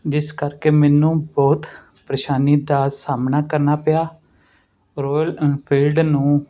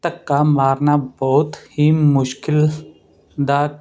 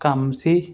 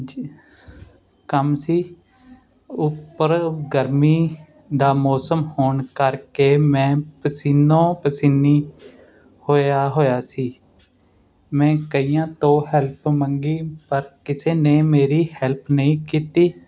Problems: constant background noise